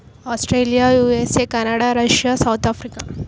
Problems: background sounds at intervals